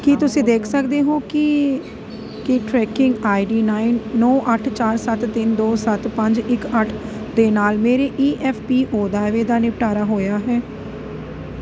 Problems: constant background noise